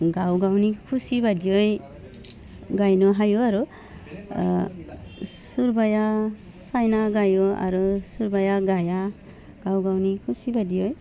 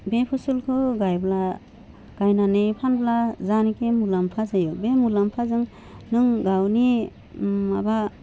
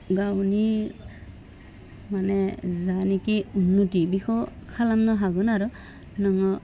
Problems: none marked